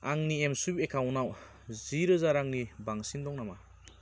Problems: constant background noise